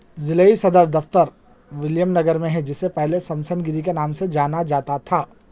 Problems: none marked